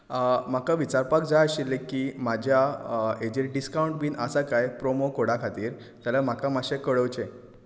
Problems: constant background noise